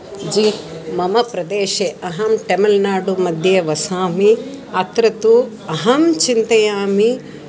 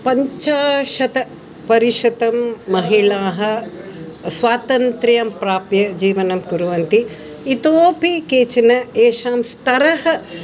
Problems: continuous background conversations